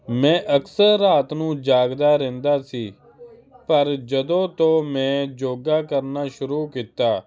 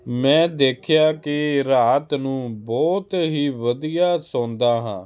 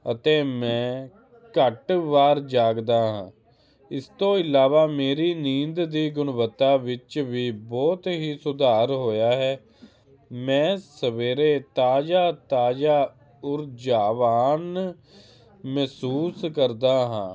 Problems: none marked